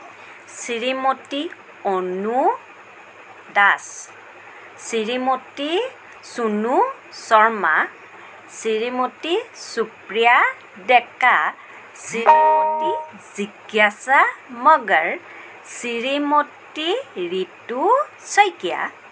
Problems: constant background noise